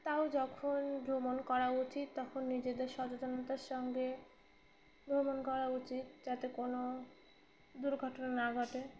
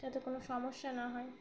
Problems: background sounds at intervals, background conversations at intervals